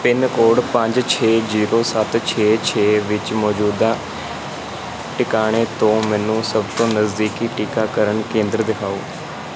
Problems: constant background noise